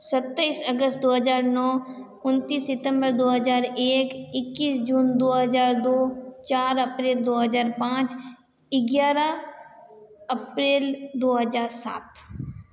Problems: none marked